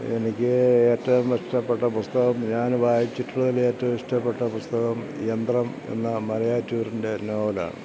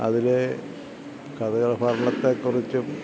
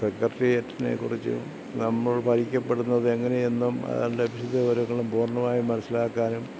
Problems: none marked